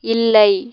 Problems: none marked